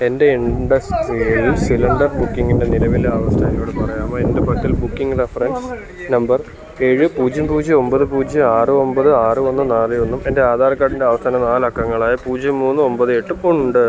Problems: continuous background conversations